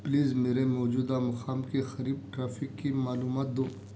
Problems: none marked